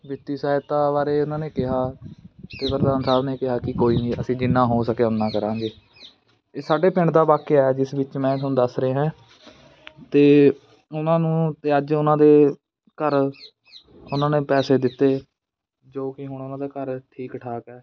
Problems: constant background noise